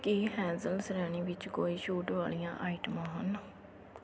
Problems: constant background noise, background conversations at intervals